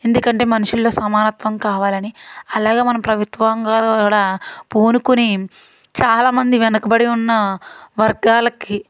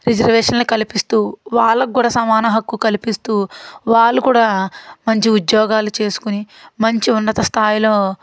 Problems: none marked